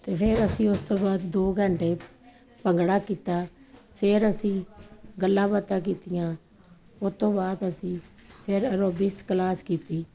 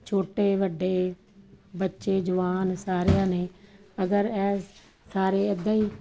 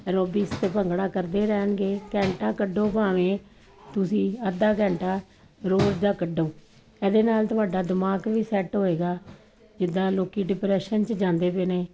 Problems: none marked